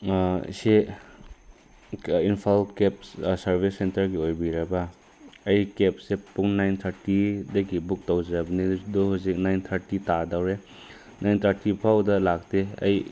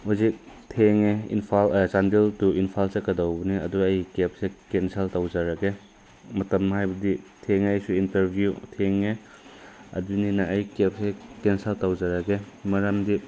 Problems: constant background noise